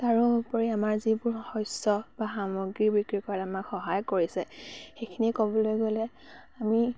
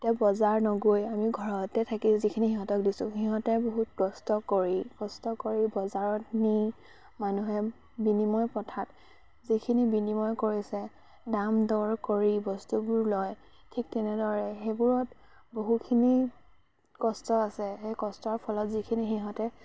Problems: constant background noise